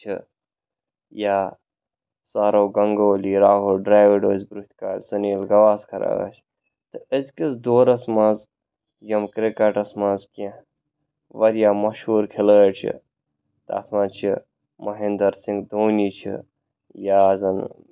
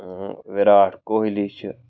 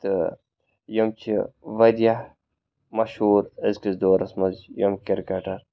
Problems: background sounds at intervals